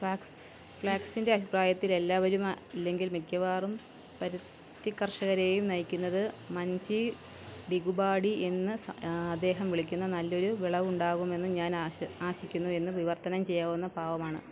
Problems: none marked